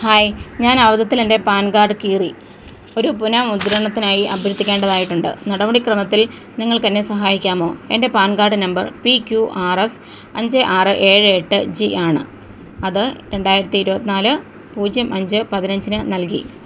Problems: none marked